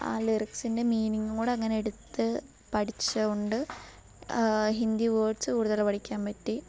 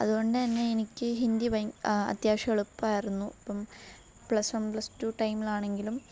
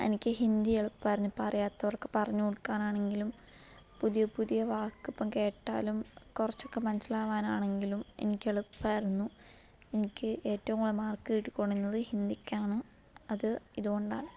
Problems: background sounds at intervals